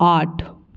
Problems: background sounds at intervals